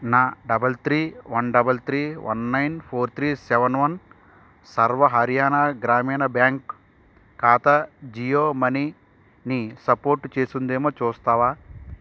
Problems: constant background noise